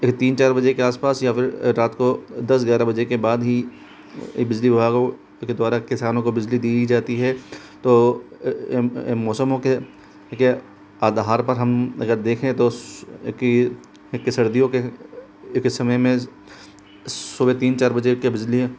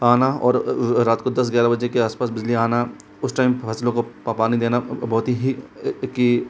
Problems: constant background noise